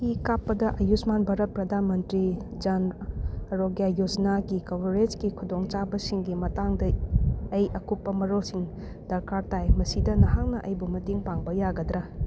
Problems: none marked